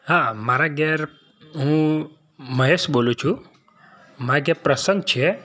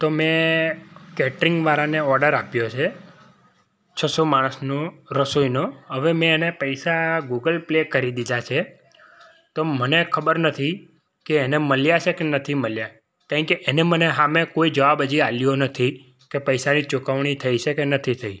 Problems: none marked